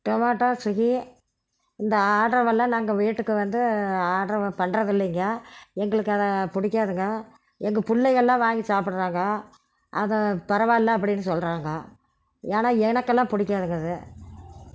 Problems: background sounds at intervals